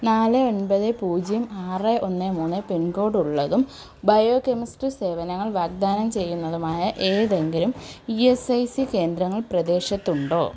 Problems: none marked